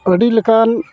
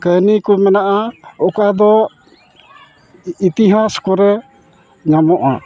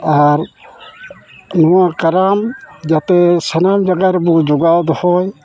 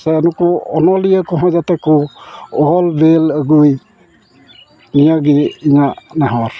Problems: background sounds at intervals